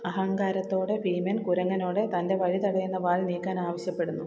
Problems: constant background noise, low volume